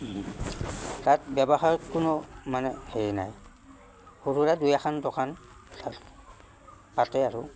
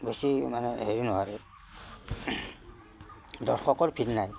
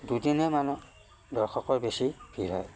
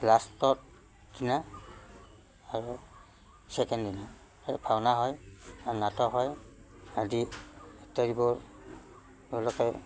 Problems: constant background noise